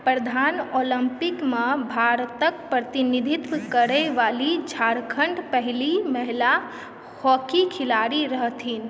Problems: background sounds at intervals